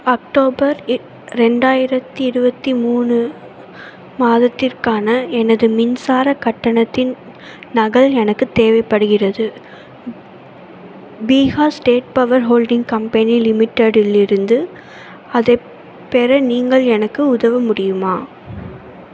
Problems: constant background noise, continuous background conversations